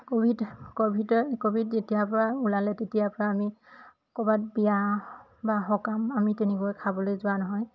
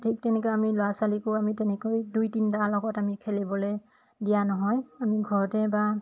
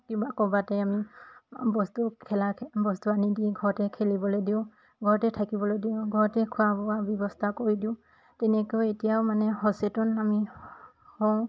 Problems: constant background noise, background conversations at intervals